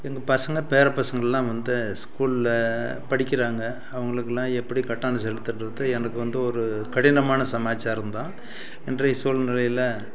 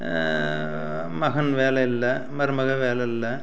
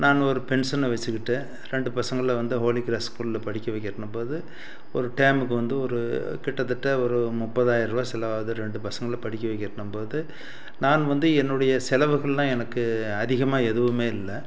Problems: none marked